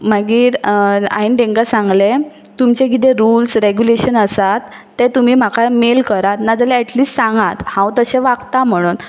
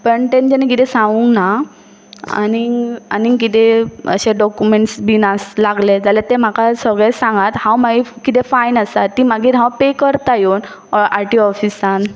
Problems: background sounds at intervals